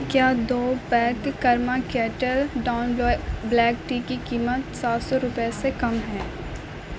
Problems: constant background noise